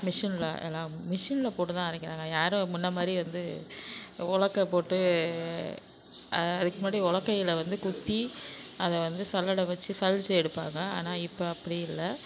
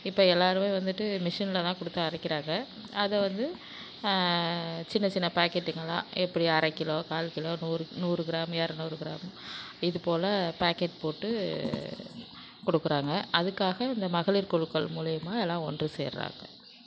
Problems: constant background noise